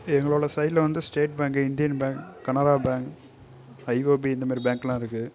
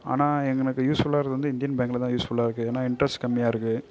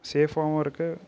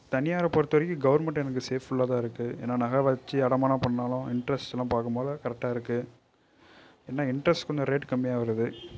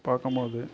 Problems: background sounds at intervals, low volume